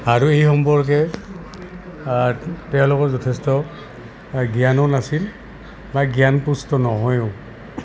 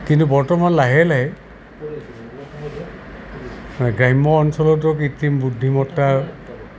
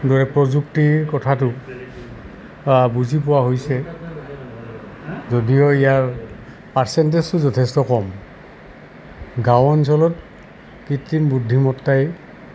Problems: constant background noise